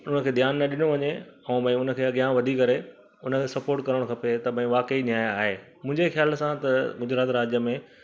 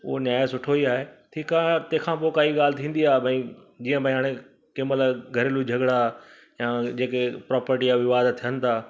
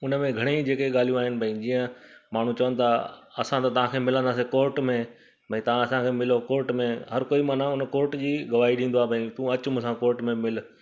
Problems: constant background noise, echo